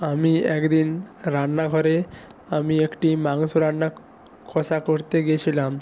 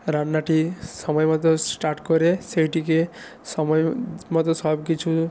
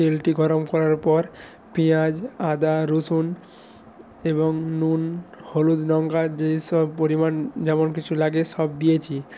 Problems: none marked